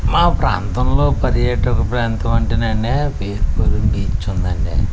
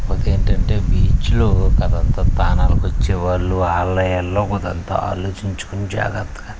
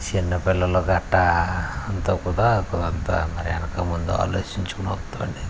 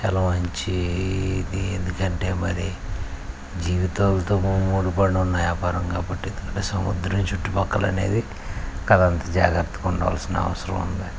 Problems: none marked